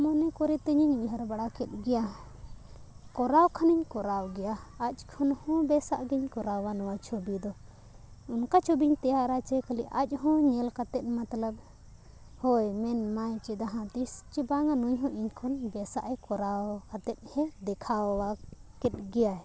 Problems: background sounds at intervals